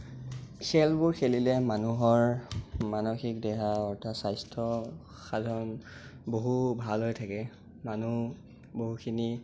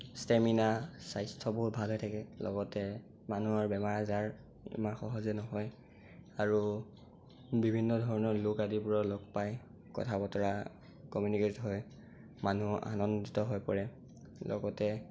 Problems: constant background noise